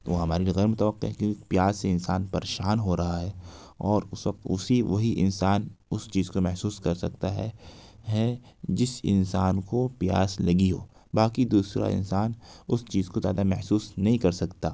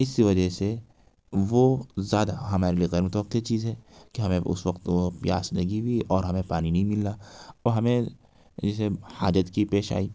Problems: background sounds at intervals